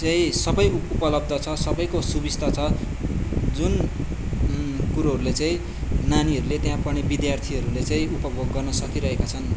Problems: background sounds at intervals, background conversations at intervals